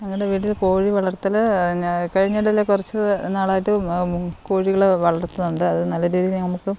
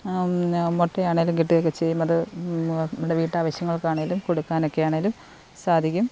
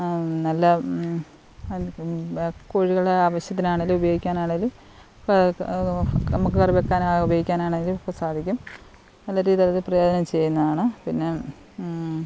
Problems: background sounds at intervals